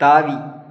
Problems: none marked